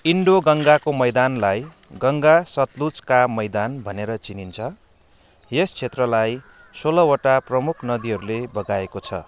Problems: constant background noise